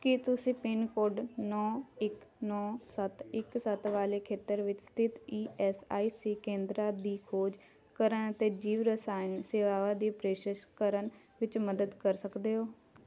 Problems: constant background noise, continuous background conversations